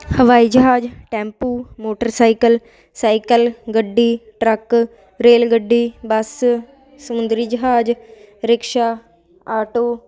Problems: constant background noise